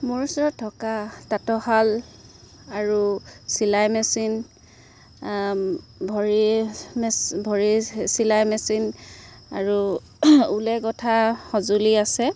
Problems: constant background noise